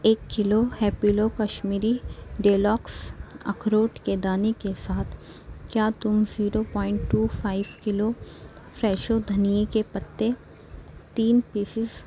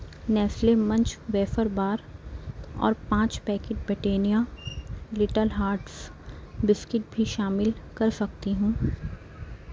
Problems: none marked